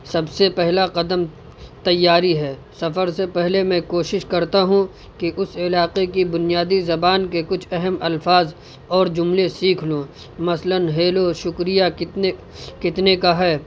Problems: constant background noise